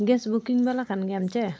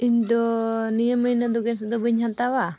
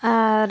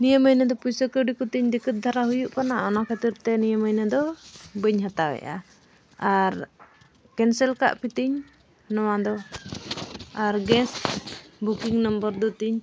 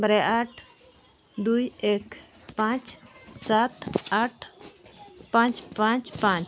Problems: background sounds at intervals